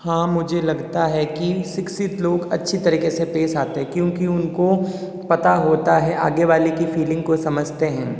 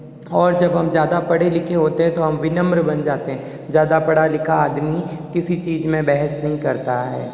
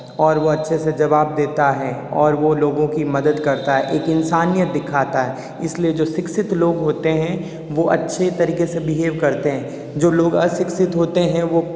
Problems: background sounds at intervals, echo